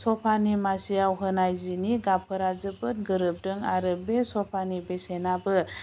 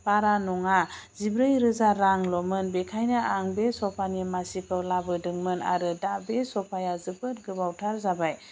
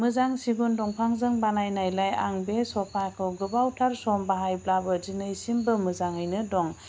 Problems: constant background noise